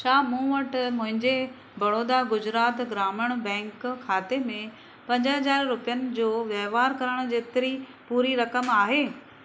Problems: constant background noise